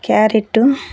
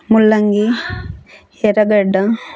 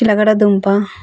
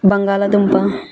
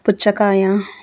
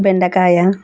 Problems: continuous background conversations